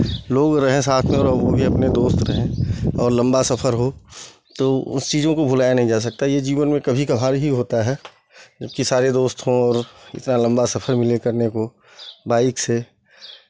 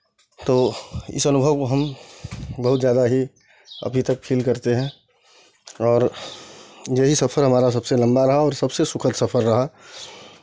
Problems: background sounds at intervals